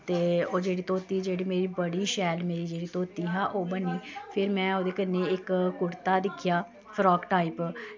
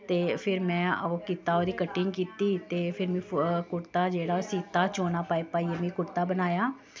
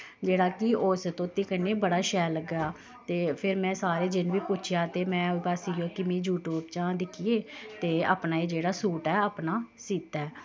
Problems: constant background noise